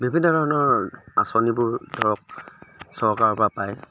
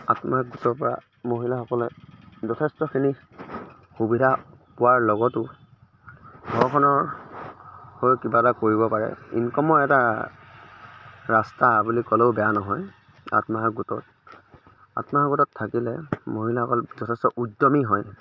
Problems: none marked